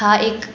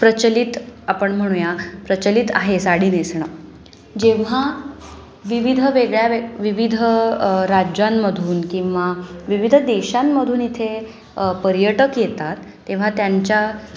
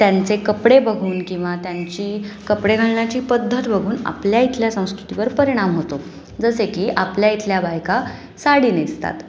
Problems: constant background noise, background conversations at intervals